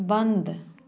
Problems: continuous background conversations